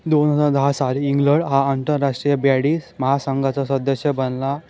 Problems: background sounds at intervals